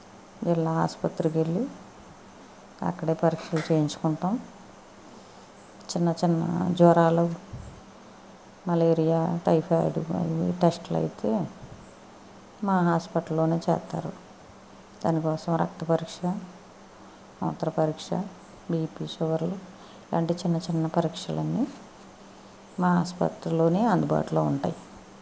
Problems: constant background noise